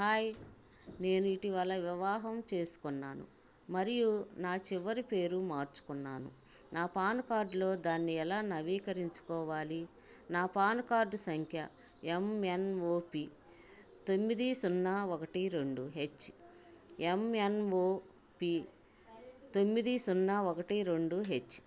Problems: none marked